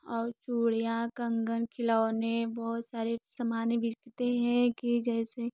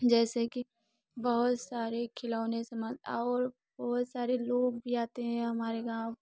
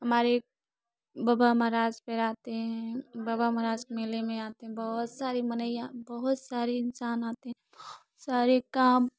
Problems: background sounds at intervals